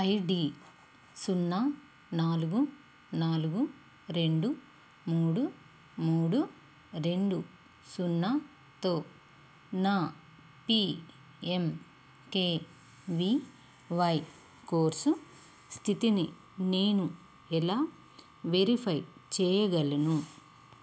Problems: constant background noise